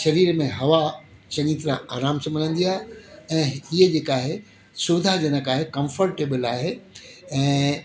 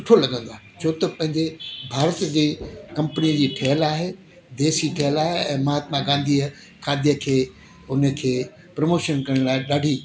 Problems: constant background noise